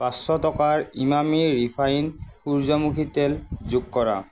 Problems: constant background noise